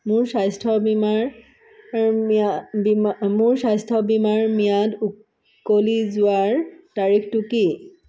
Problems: none marked